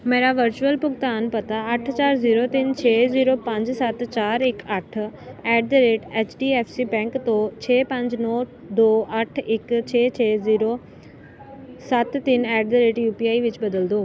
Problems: none marked